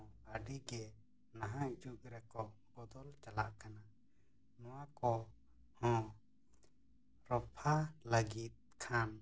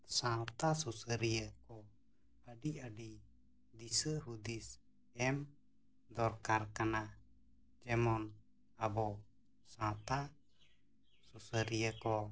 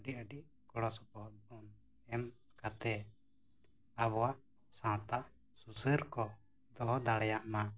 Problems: background sounds at intervals, low volume